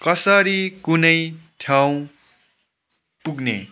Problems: background sounds at intervals